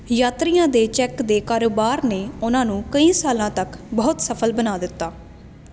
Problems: constant background noise